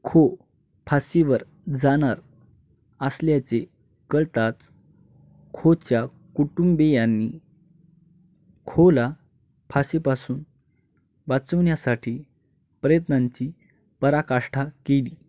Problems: none marked